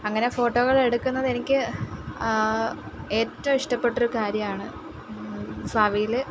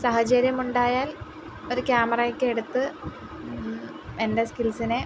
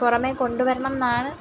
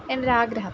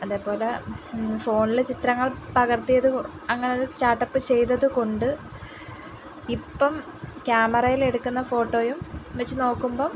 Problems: constant background noise